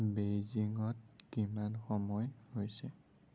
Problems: low volume